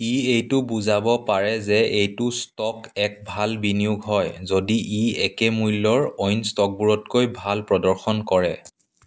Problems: background sounds at intervals